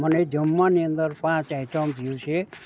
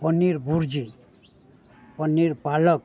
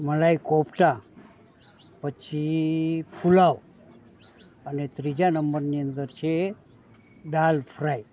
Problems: none marked